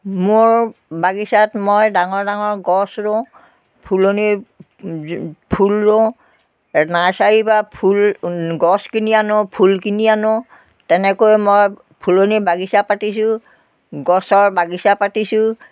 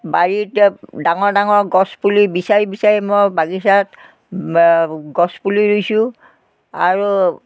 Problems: constant background noise